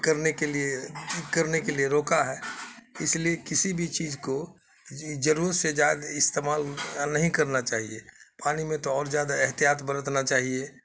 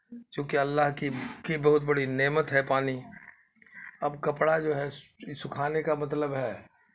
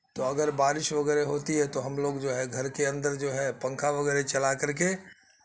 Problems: constant background noise